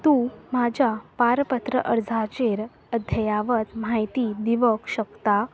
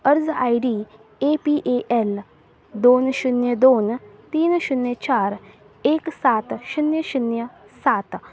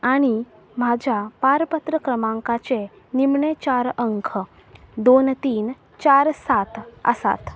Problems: constant background noise